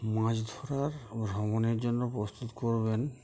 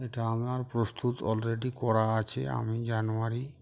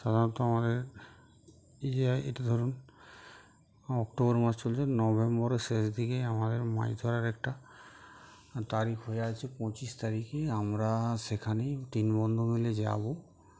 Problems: background sounds at intervals